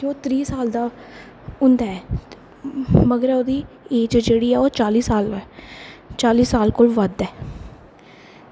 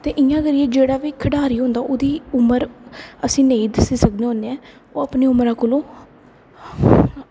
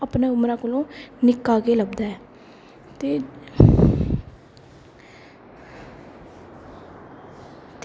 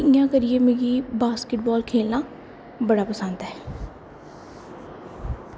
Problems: constant background noise